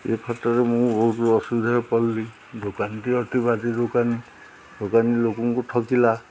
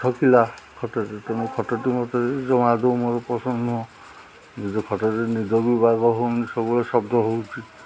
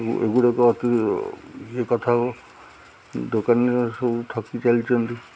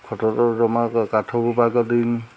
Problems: none marked